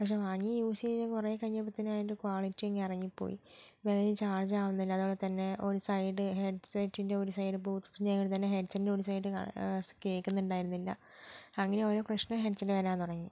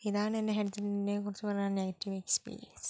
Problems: low volume